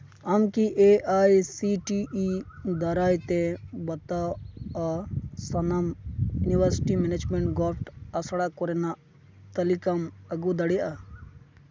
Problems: background sounds at intervals